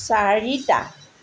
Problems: constant background noise